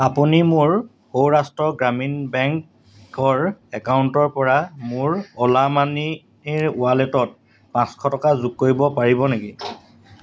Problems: none marked